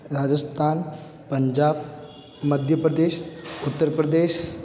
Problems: none marked